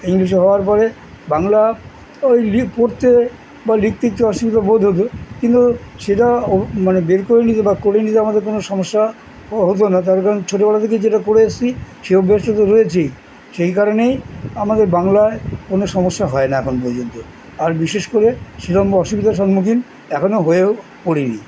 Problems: constant background noise